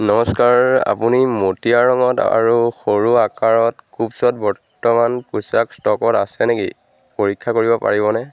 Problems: constant background noise